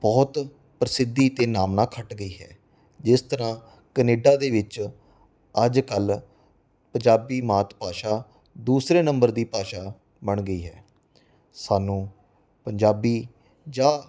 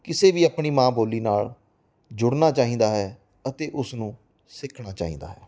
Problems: none marked